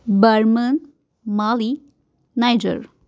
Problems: constant background noise